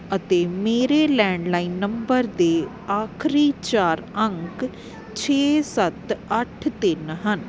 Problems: constant background noise